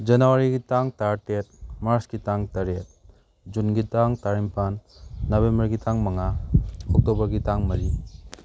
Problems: background sounds at intervals